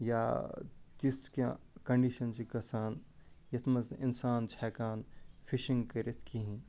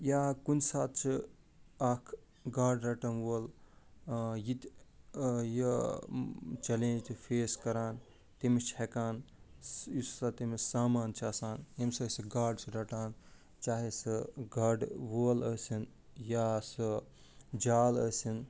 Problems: none marked